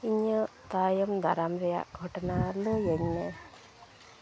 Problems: background sounds at intervals, low volume